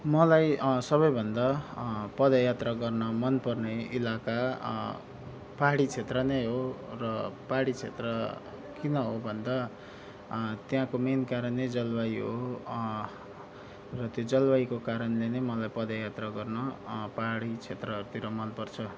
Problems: none marked